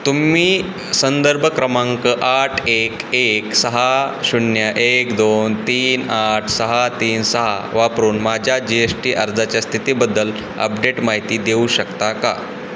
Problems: none marked